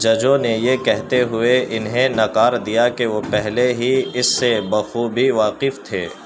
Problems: constant background noise